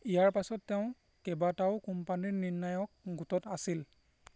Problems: none marked